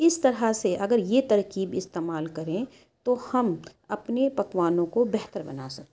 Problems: background sounds at intervals, background conversations at intervals